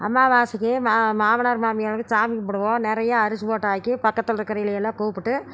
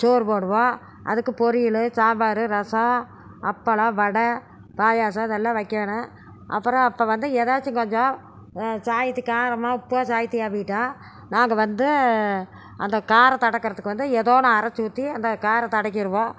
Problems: none marked